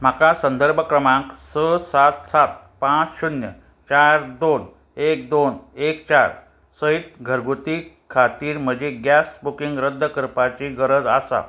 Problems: constant background noise